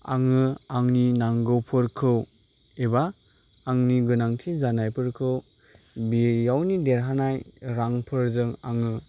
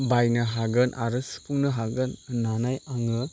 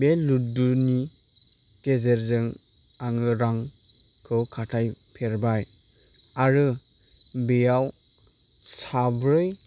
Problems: none marked